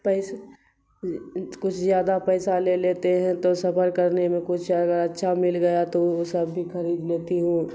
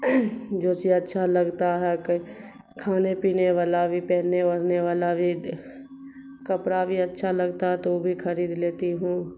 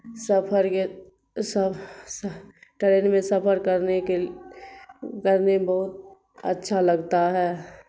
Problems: constant background noise